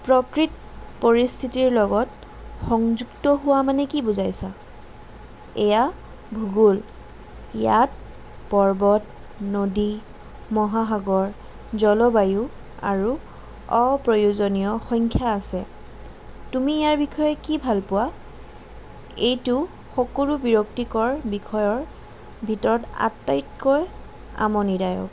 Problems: none marked